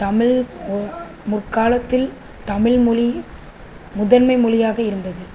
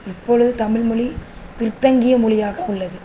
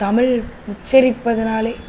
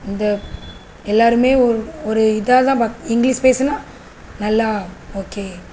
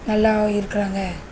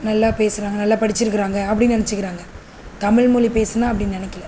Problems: constant background noise